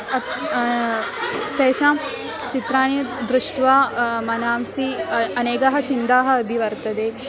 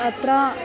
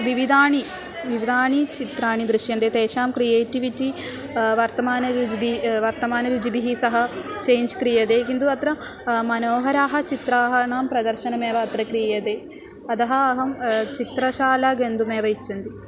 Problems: background sounds at intervals